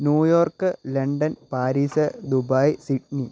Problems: low volume